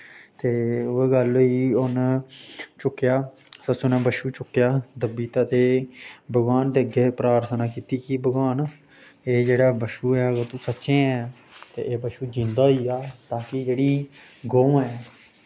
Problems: constant background noise